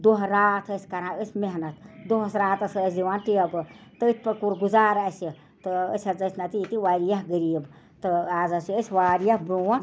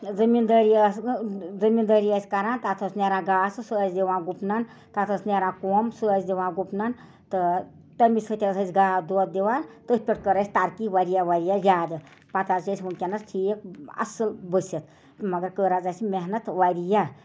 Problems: constant background noise, background conversations at intervals